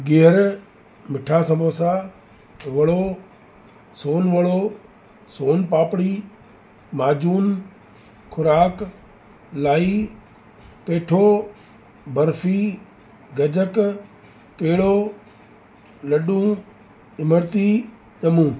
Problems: constant background noise